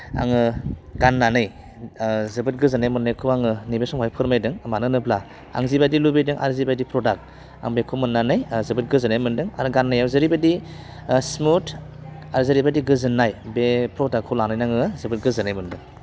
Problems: constant background noise